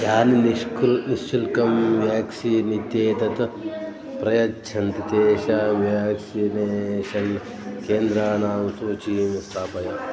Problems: constant background noise, continuous background conversations